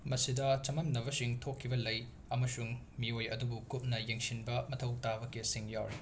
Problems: background sounds at intervals